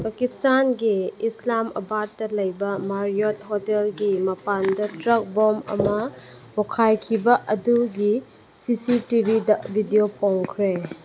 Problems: background sounds at intervals